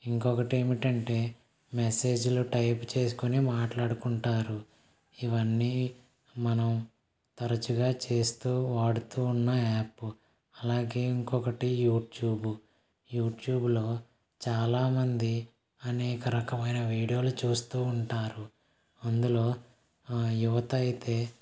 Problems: none marked